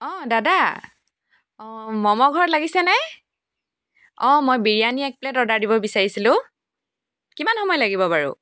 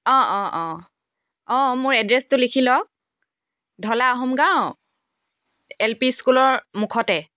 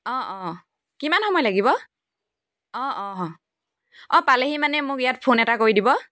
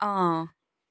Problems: background sounds at intervals